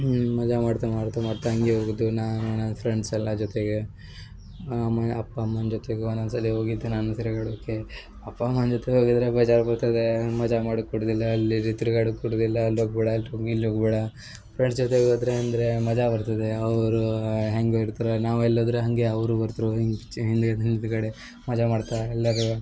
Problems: background sounds at intervals